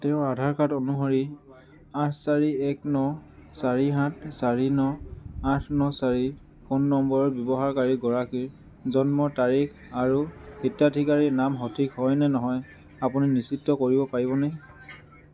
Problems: constant background noise